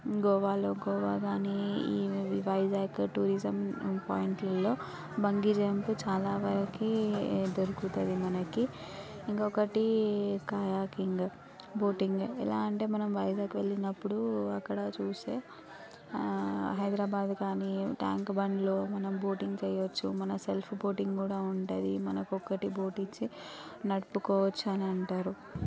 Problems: background conversations at intervals